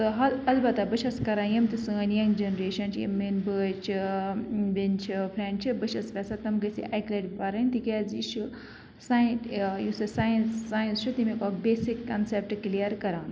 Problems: constant background noise